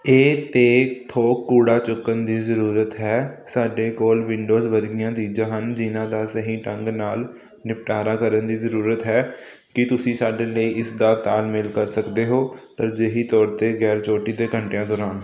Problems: none marked